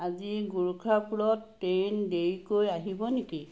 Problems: background sounds at intervals